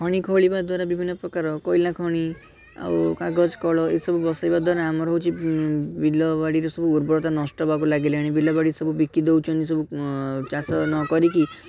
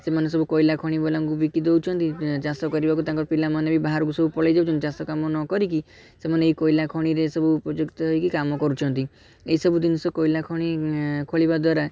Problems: background sounds at intervals, continuous background conversations